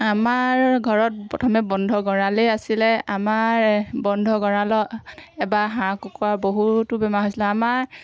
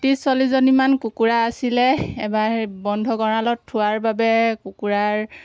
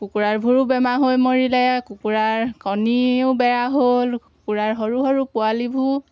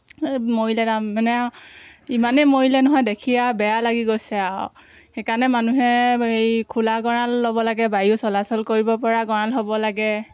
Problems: constant background noise, background conversations at intervals